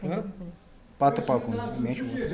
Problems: constant background noise